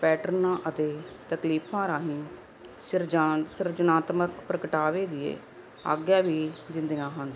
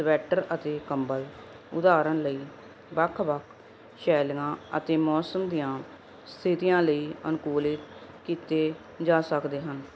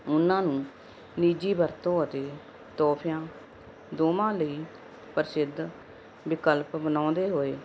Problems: none marked